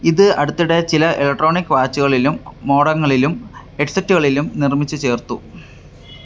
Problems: background sounds at intervals